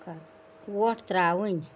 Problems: none marked